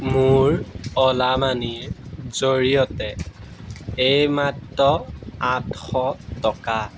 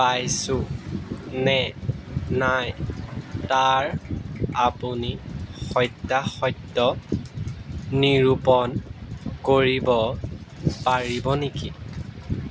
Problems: background sounds at intervals